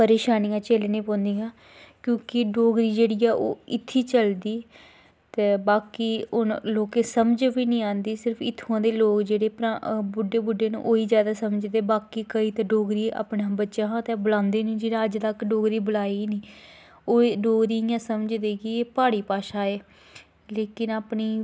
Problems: background sounds at intervals